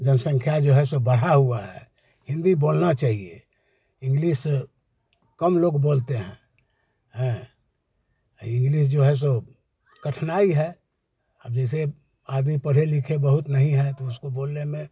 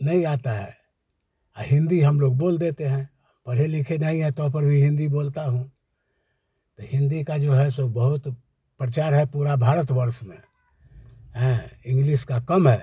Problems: none marked